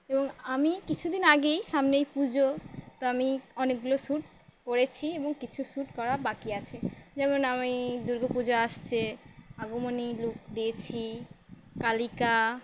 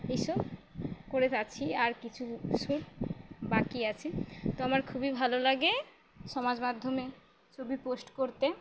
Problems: constant background noise